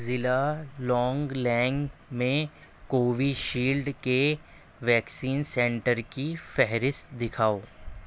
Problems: constant background noise